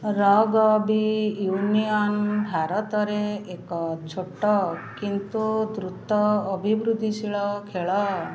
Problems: constant background noise, continuous background conversations